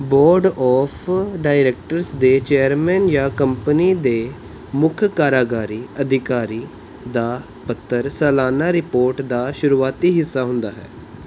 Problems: background sounds at intervals